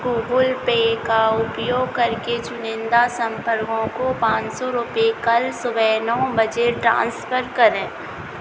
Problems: none marked